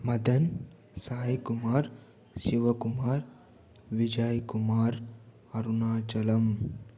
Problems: low volume